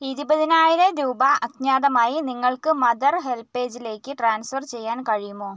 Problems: none marked